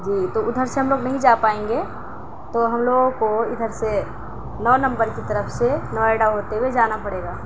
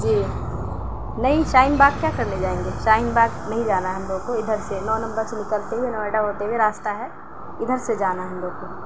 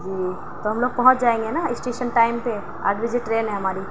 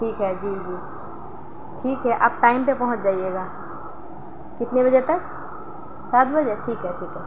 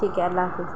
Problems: constant background noise